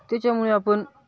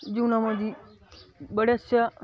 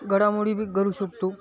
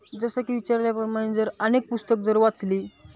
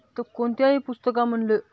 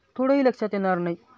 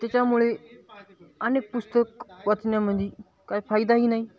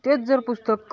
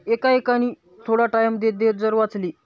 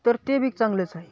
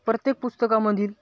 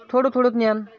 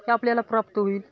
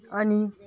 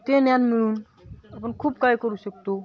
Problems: none marked